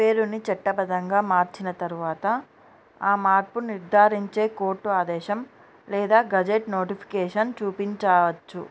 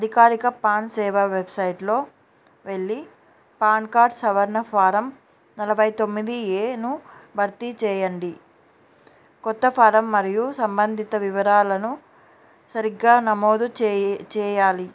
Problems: background sounds at intervals